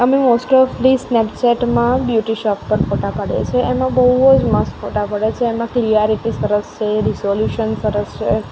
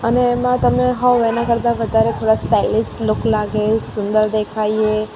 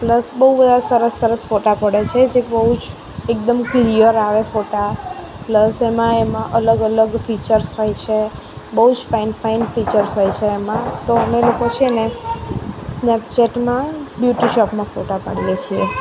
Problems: constant background noise